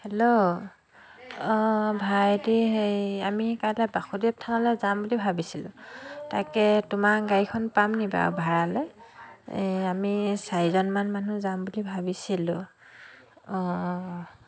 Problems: continuous background conversations